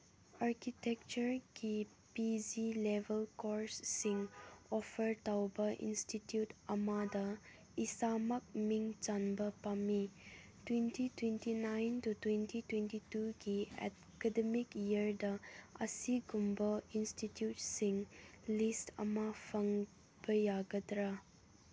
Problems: low volume